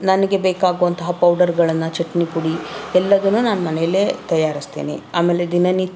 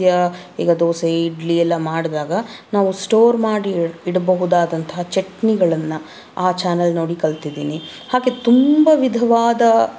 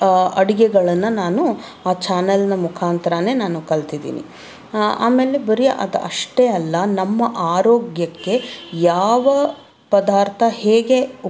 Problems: none marked